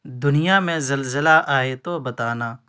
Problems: constant background noise